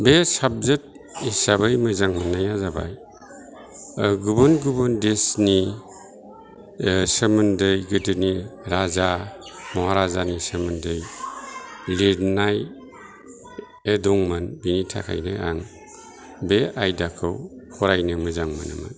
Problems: constant background noise, continuous background conversations